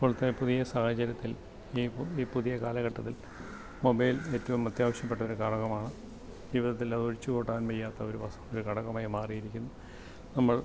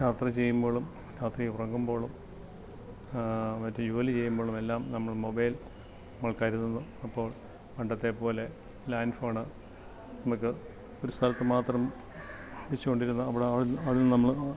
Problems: background sounds at intervals, low volume